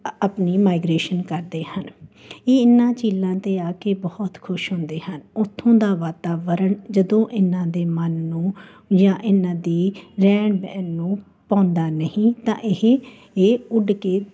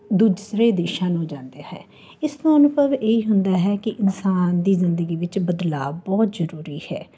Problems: constant background noise